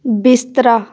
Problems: background conversations at intervals